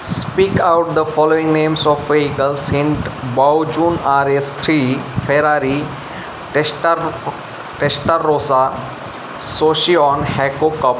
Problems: constant background noise